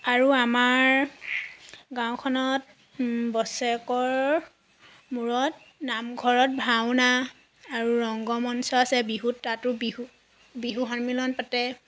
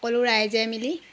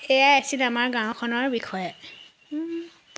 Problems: none marked